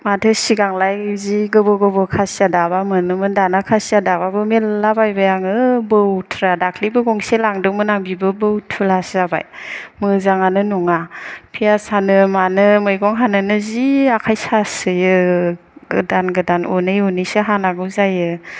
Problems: none marked